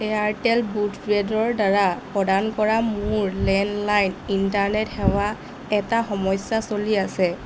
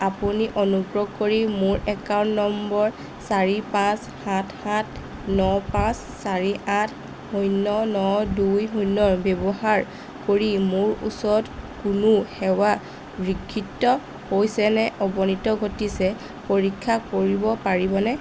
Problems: constant background noise